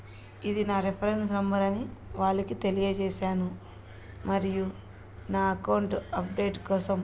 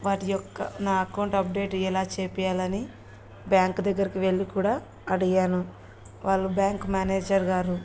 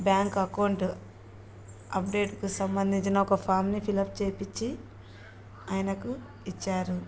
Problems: background sounds at intervals